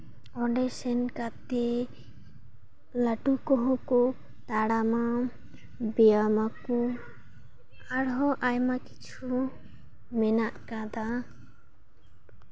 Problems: background sounds at intervals